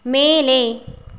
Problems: none marked